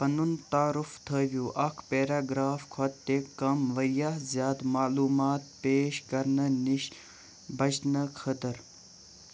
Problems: constant background noise